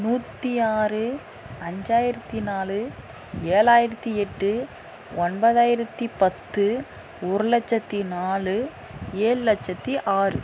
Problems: background conversations at intervals